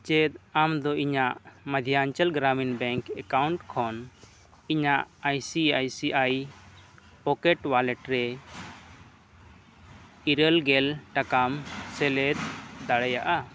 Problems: background sounds at intervals